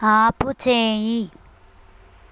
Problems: constant background noise